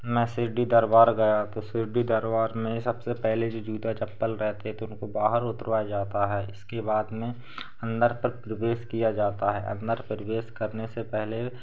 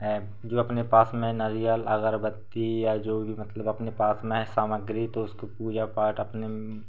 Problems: constant background noise